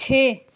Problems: none marked